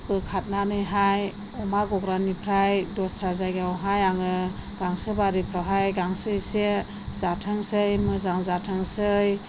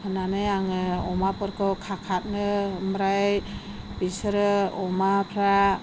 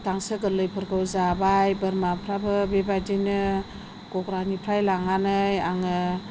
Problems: none marked